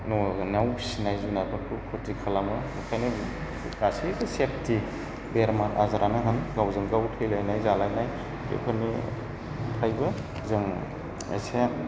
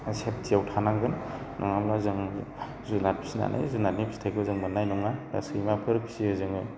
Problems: constant background noise